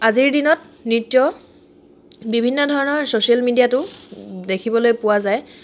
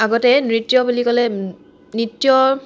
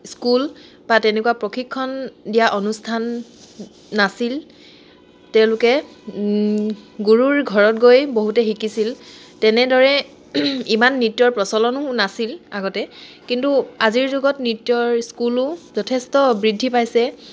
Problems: none marked